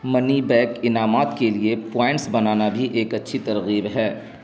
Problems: constant background noise